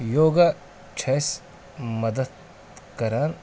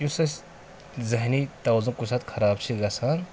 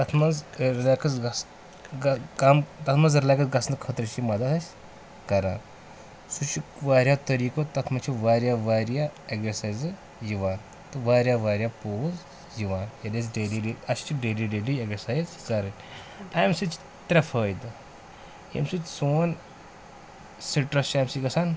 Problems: none marked